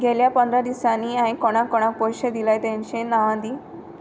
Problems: constant background noise